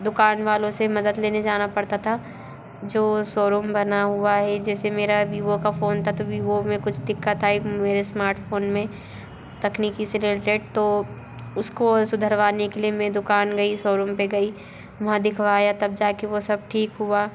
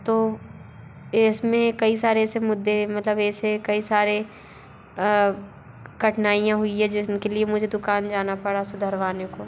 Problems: constant background noise, continuous background conversations